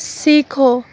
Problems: none marked